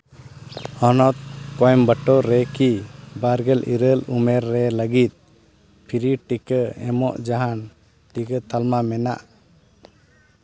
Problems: background sounds at intervals